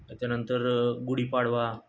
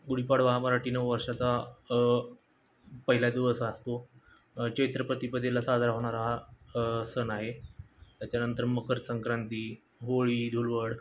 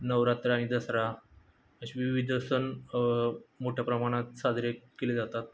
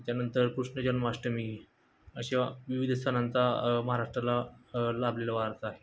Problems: constant background noise